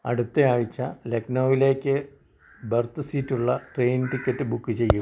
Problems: constant background noise, low volume